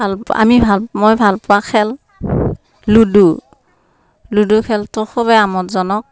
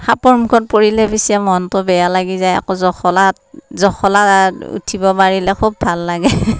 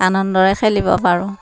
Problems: none marked